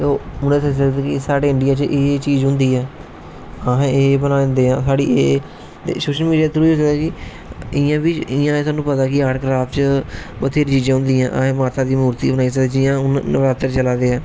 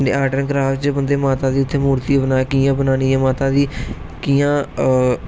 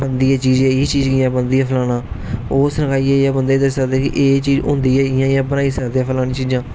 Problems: constant background noise